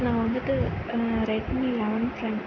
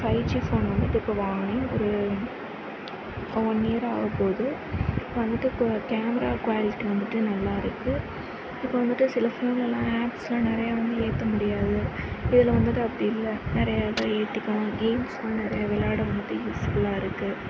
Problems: none marked